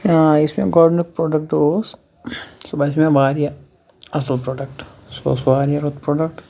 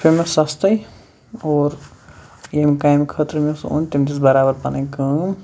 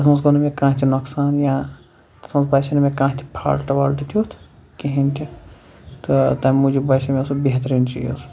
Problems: none marked